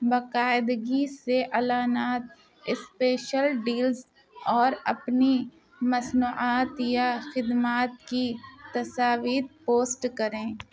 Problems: background conversations at intervals